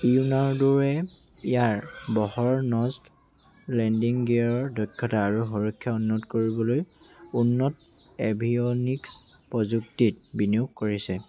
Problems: none marked